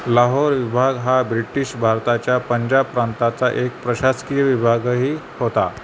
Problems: constant background noise